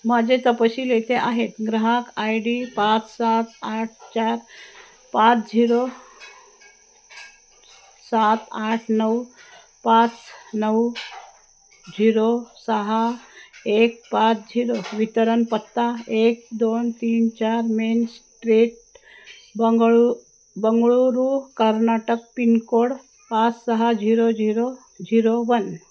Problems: none marked